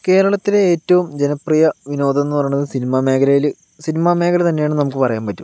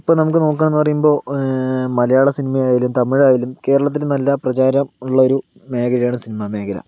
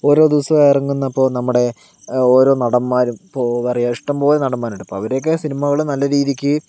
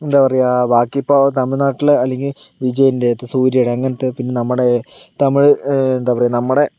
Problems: none marked